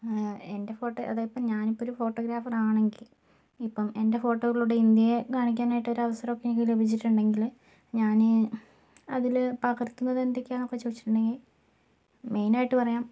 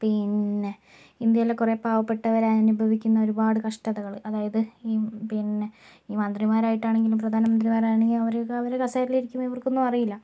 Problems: low volume